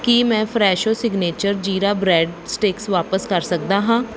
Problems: background sounds at intervals